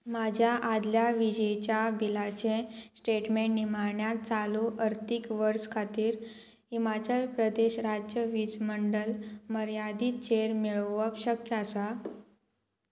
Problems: constant background noise